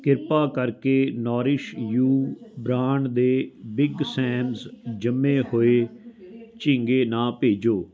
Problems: continuous background conversations